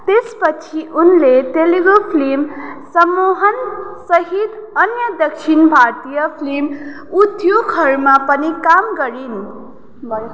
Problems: background conversations at intervals